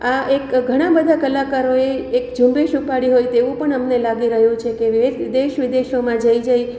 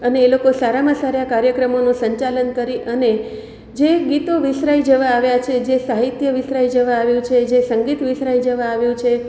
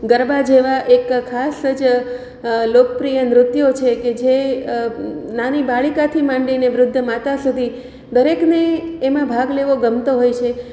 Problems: none marked